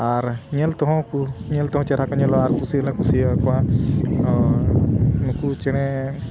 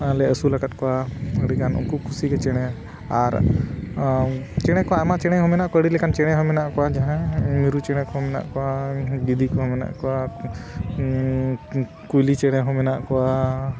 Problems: constant background noise